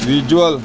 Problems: none marked